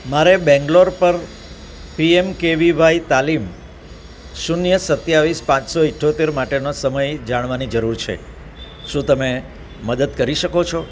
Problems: none marked